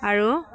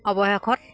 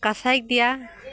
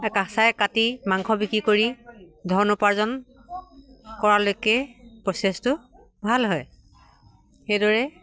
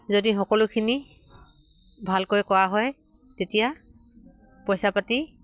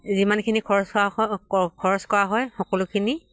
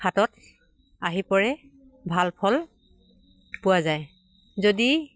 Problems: none marked